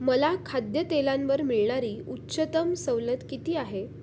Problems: constant background noise